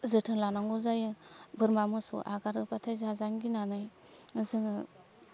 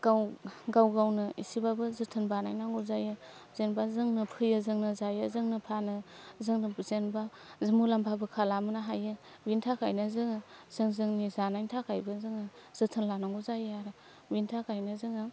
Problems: none marked